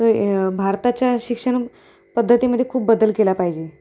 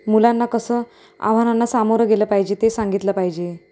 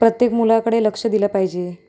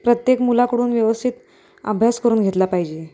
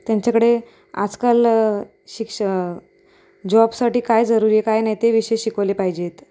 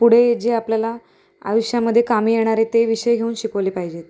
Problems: constant background noise